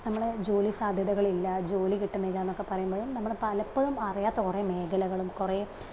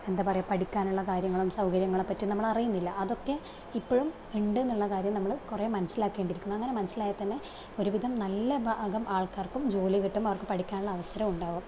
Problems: low volume